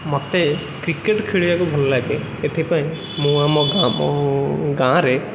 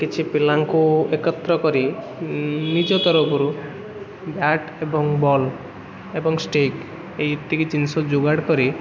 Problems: constant background noise